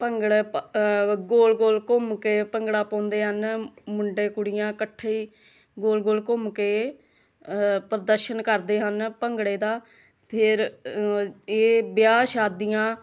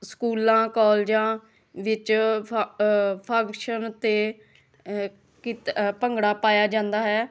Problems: continuous background conversations